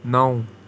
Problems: constant background noise